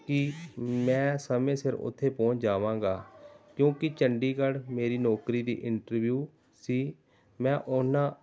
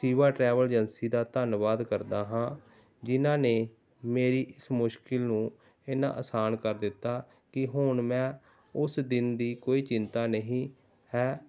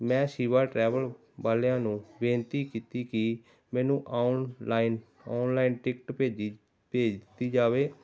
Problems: background sounds at intervals, background conversations at intervals